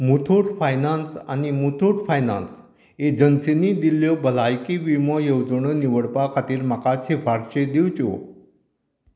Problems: none marked